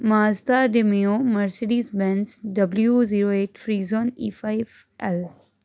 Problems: constant background noise